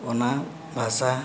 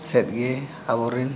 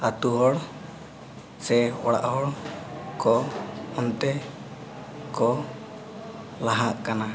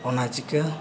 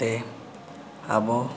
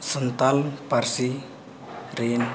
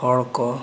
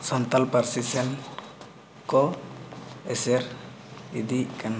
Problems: constant background noise